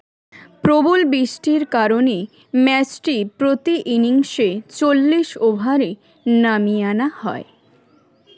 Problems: continuous background conversations